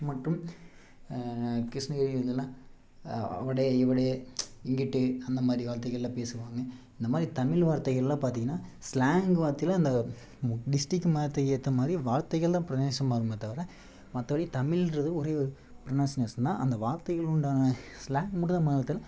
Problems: low volume